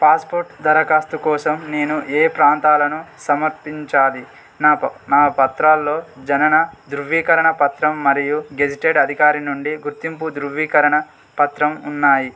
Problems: constant background noise